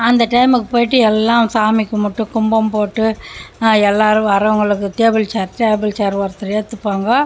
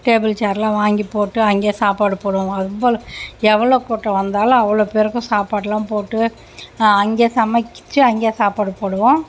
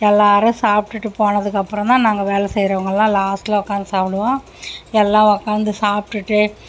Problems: constant background noise